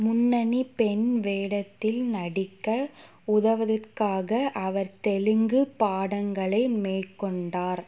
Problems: background sounds at intervals